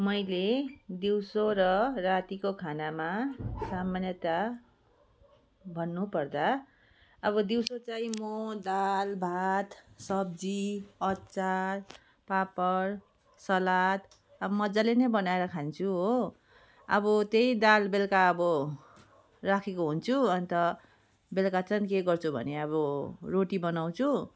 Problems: background sounds at intervals